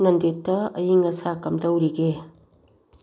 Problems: none marked